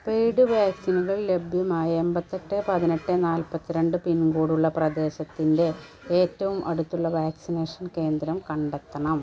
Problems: none marked